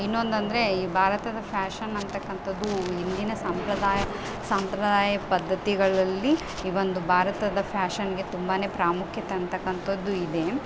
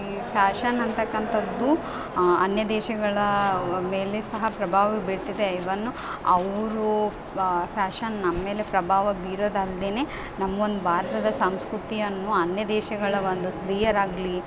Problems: background sounds at intervals